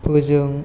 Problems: none marked